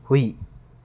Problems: none marked